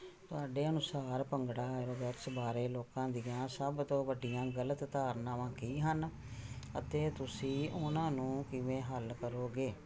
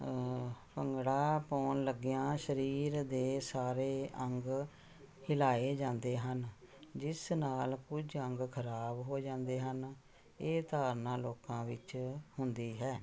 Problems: none marked